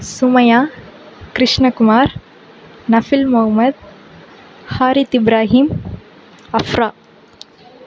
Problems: constant background noise